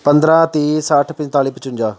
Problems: none marked